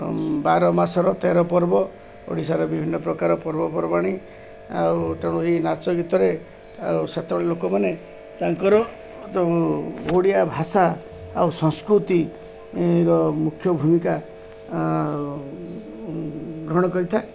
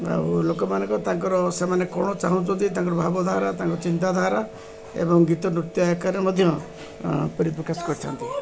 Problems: constant background noise, continuous background conversations